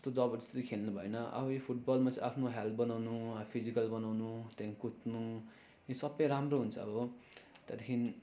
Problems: constant background noise